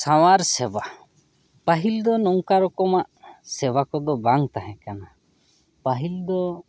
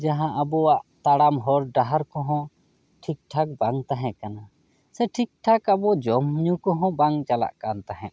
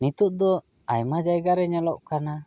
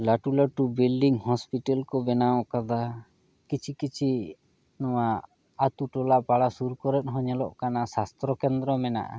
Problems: none marked